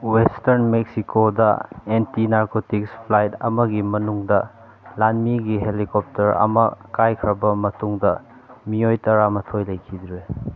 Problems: constant background noise